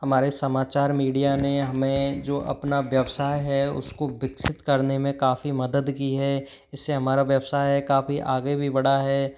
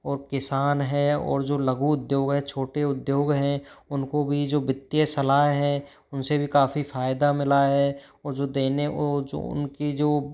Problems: background sounds at intervals